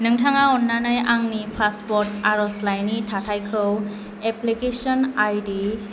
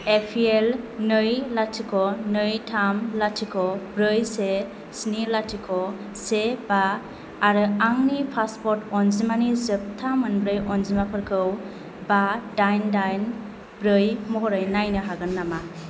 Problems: none marked